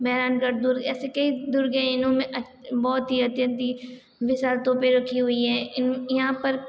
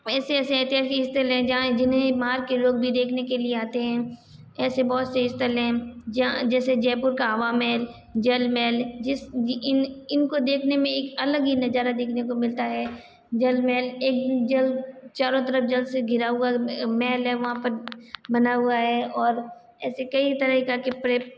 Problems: none marked